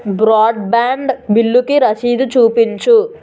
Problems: constant background noise, background conversations at intervals